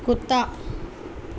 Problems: constant background noise